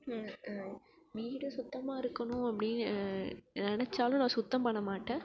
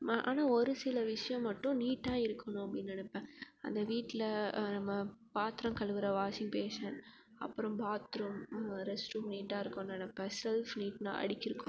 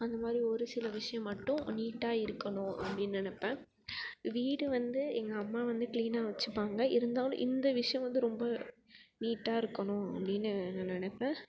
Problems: background sounds at intervals